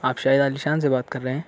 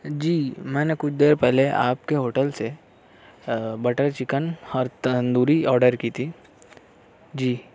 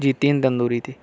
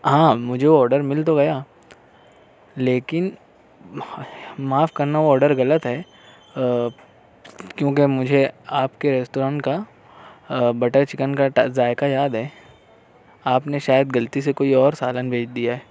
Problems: none marked